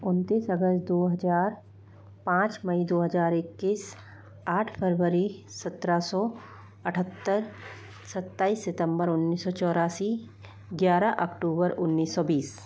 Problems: constant background noise